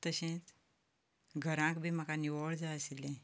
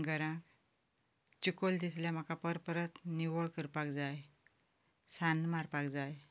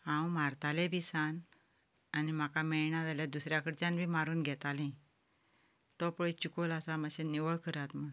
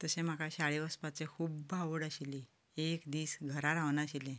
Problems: none marked